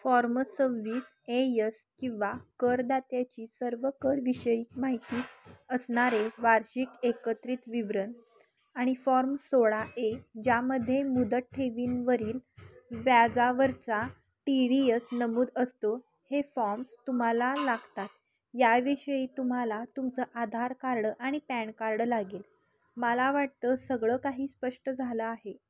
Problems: none marked